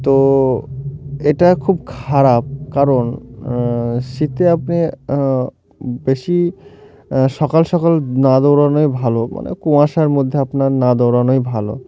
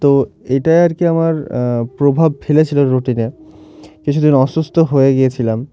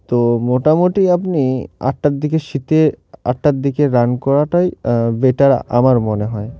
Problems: none marked